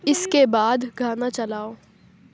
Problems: background sounds at intervals